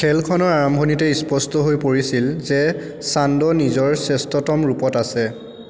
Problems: constant background noise, background conversations at intervals